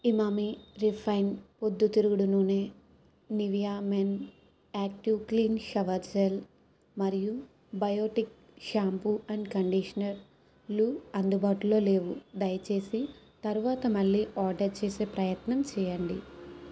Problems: constant background noise